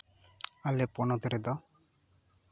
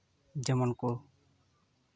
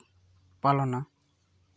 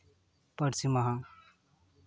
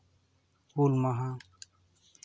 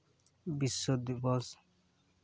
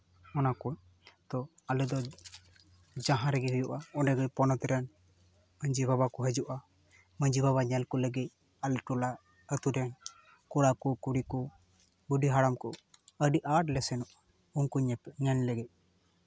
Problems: none marked